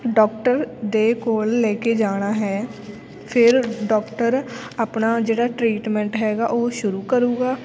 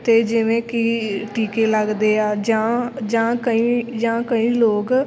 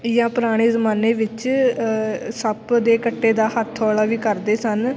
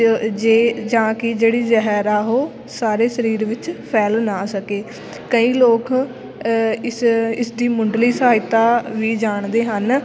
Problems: constant background noise